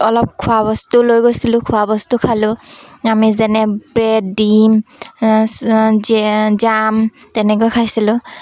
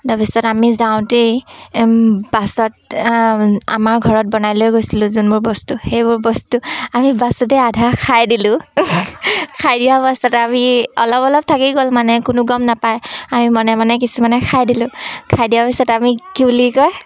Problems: constant background noise, background conversations at intervals